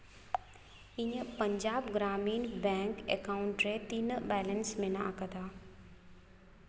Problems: none marked